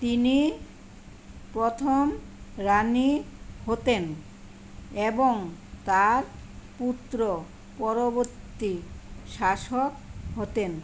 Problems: constant background noise